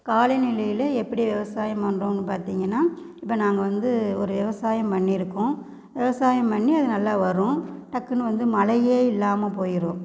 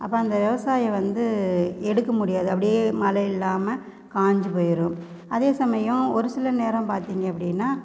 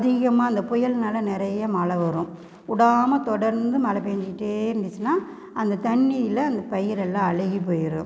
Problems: background sounds at intervals